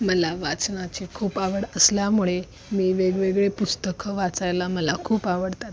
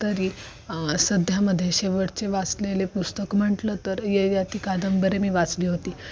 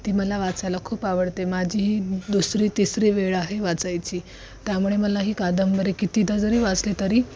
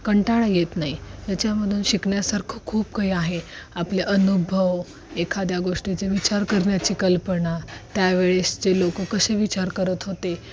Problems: constant background noise